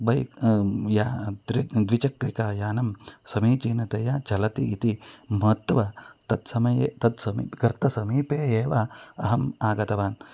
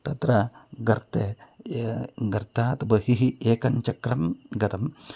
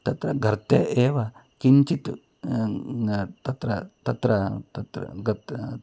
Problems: background sounds at intervals